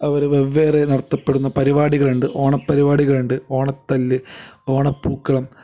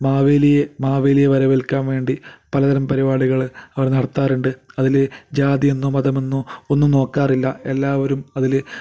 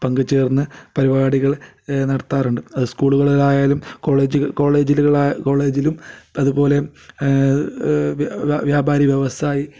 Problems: none marked